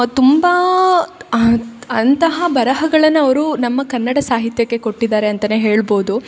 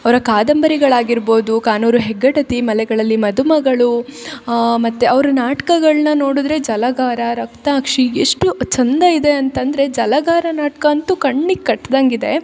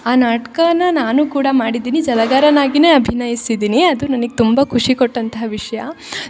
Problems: none marked